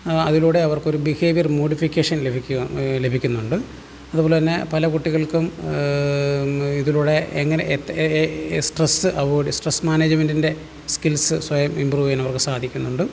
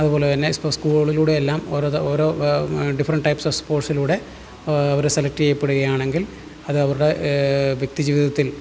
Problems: low volume